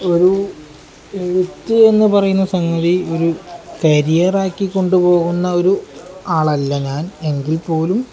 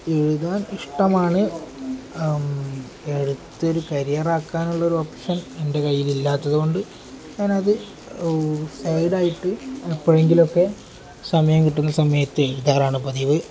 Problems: none marked